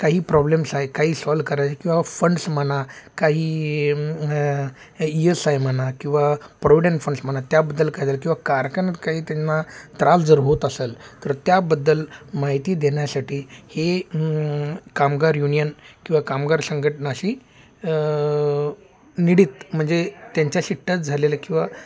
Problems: background sounds at intervals, background conversations at intervals